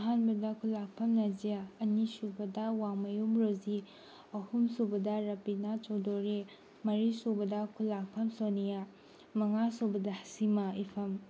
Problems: background sounds at intervals